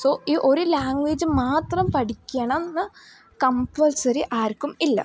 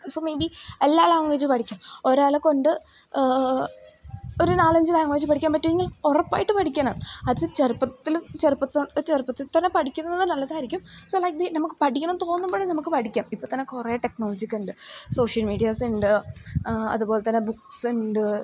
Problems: constant background noise, low volume